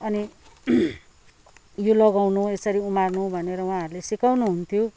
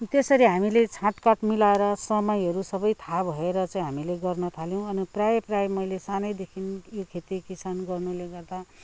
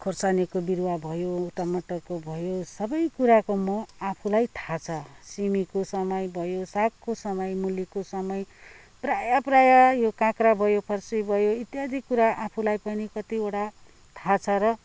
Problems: background sounds at intervals